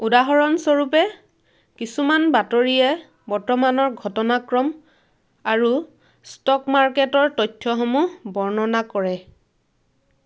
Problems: none marked